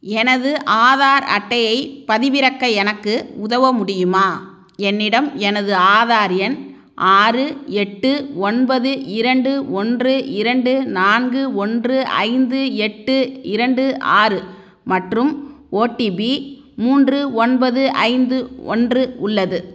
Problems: none marked